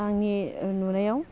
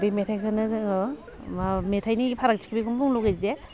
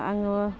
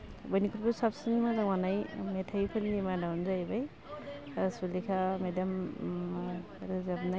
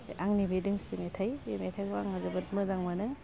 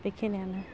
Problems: constant background noise